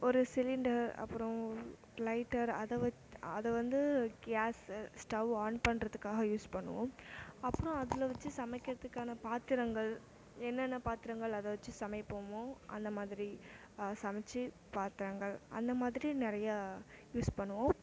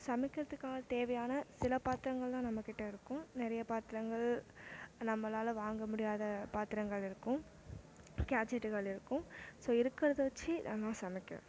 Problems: low volume